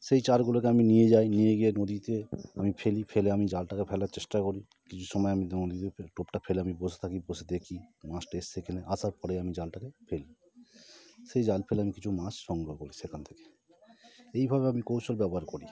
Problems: none marked